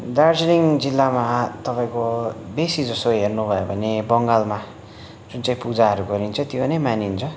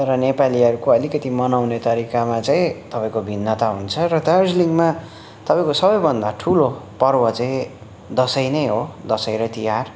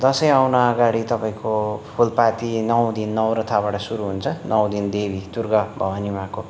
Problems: constant background noise